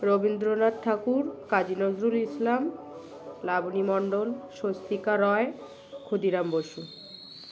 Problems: constant background noise